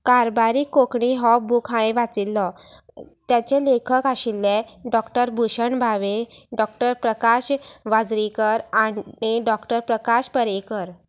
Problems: background sounds at intervals